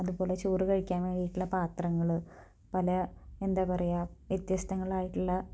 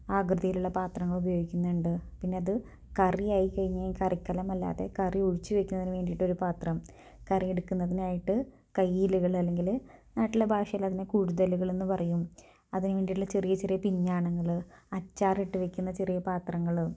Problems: low volume